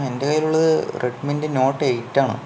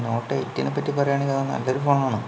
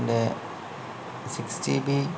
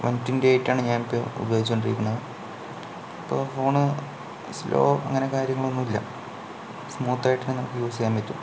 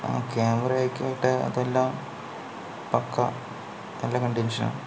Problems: low volume